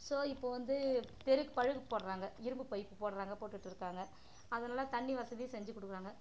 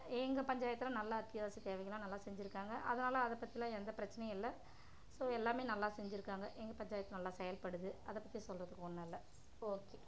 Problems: constant background noise, background conversations at intervals, low volume